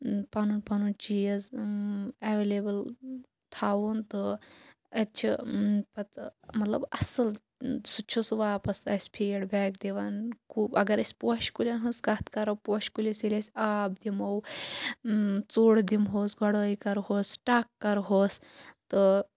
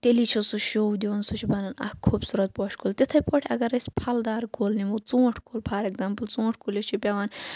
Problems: none marked